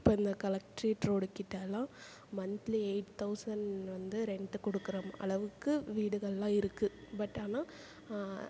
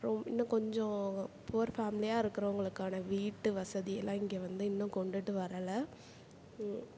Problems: background conversations at intervals